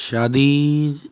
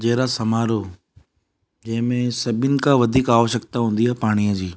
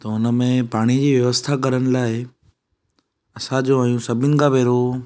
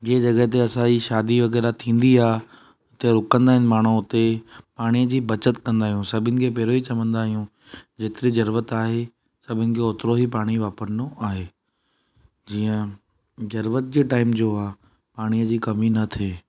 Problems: none marked